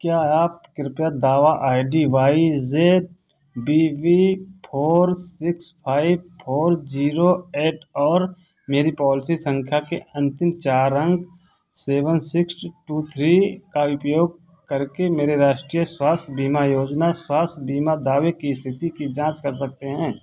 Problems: constant background noise